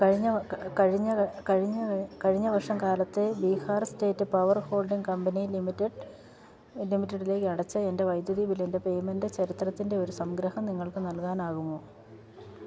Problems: background sounds at intervals